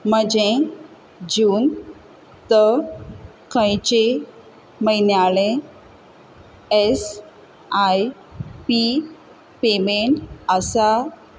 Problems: constant background noise